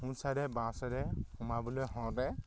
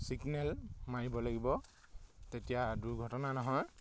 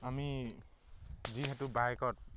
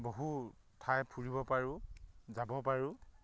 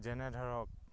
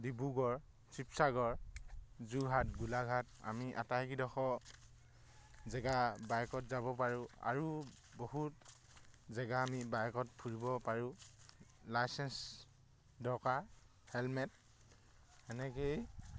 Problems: none marked